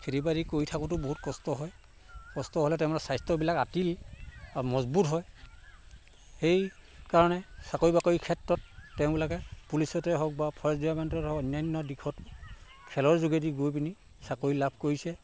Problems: constant background noise